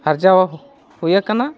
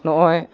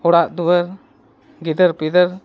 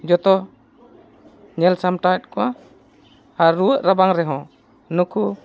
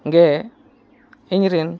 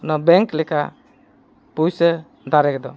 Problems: background sounds at intervals, continuous background conversations